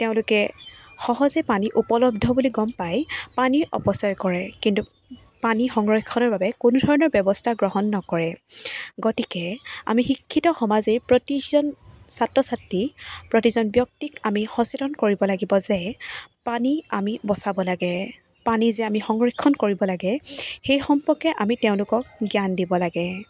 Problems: none marked